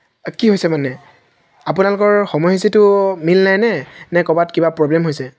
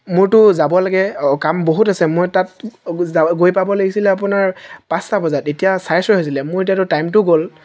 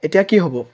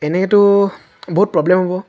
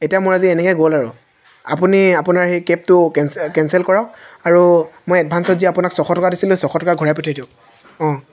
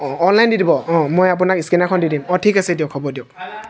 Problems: none marked